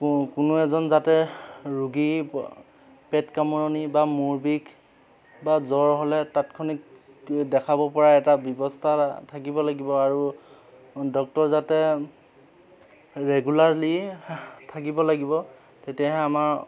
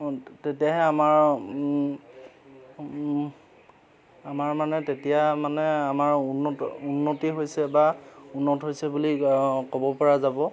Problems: constant background noise